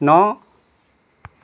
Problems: none marked